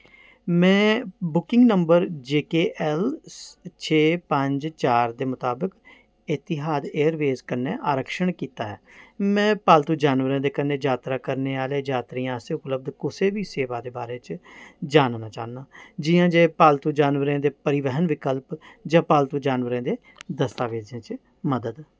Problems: background sounds at intervals